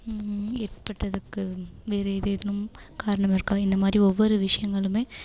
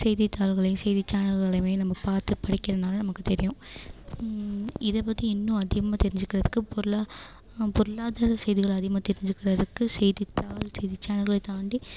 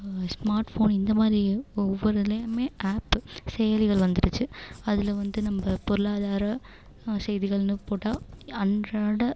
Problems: constant background noise